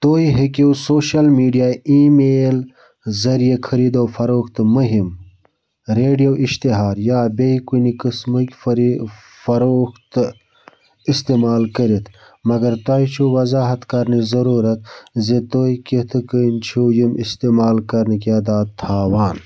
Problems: background sounds at intervals